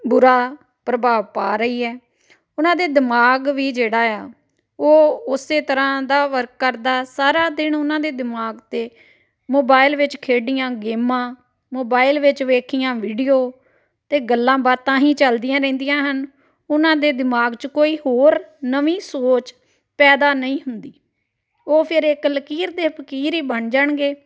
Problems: background conversations at intervals